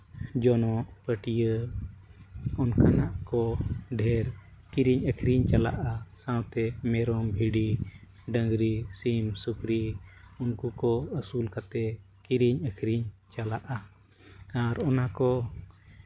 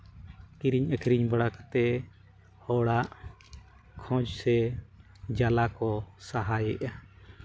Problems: none marked